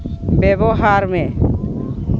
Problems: constant background noise